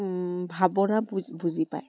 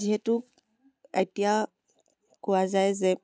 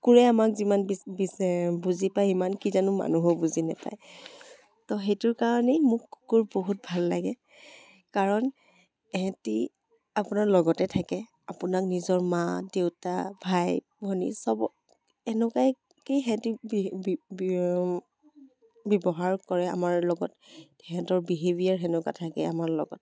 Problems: background sounds at intervals